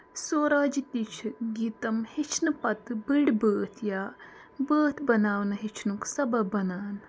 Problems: constant background noise